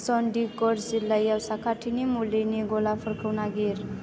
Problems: constant background noise